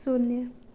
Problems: none marked